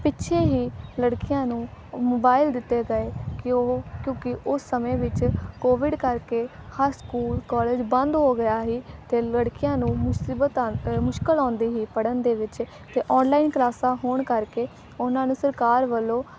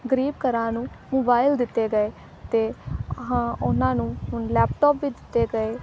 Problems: constant background noise